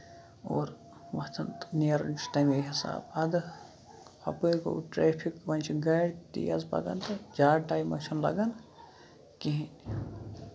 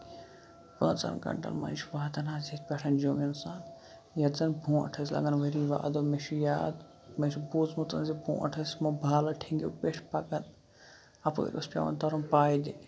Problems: background sounds at intervals, low volume